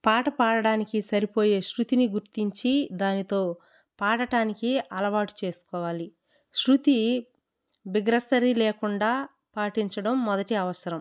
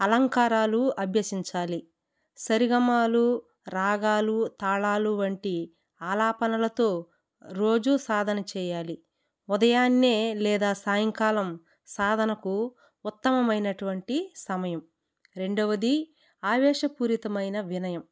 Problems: none marked